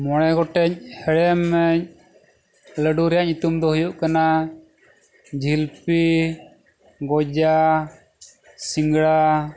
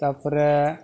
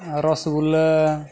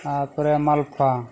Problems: none marked